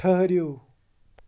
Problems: background sounds at intervals